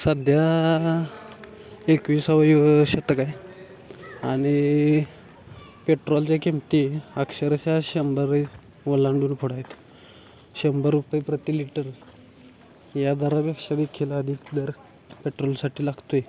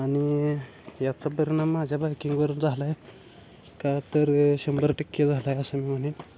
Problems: constant background noise, continuous background conversations